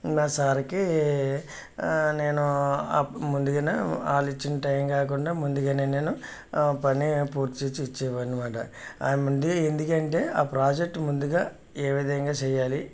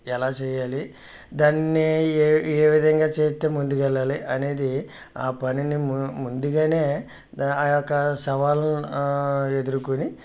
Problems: none marked